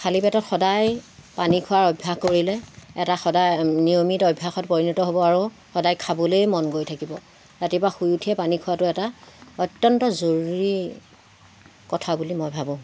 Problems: constant background noise